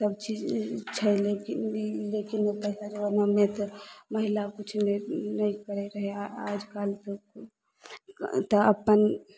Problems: none marked